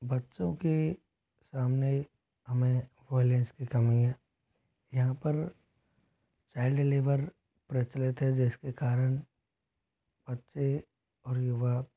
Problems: constant background noise